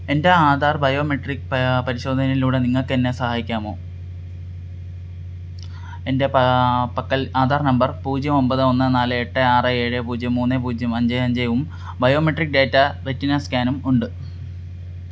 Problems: constant background noise